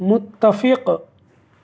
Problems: background sounds at intervals